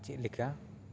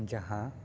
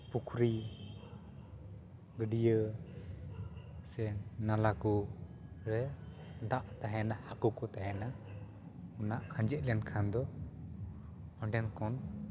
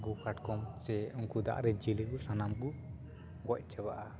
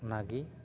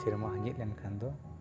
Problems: continuous background conversations